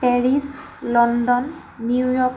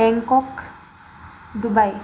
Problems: constant background noise